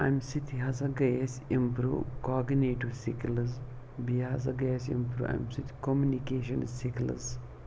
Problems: none marked